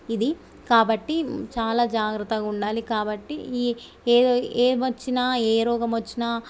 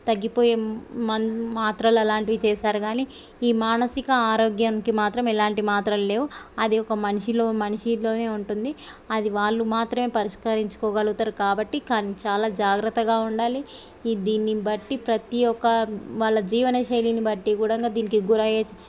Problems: none marked